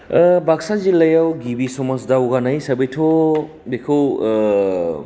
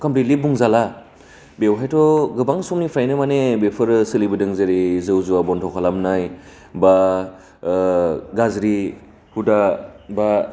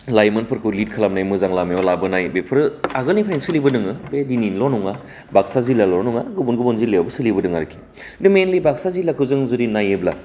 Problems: none marked